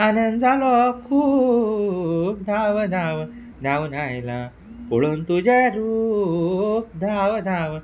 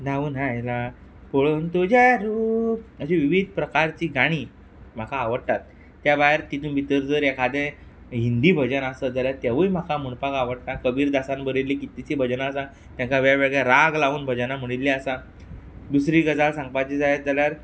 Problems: background sounds at intervals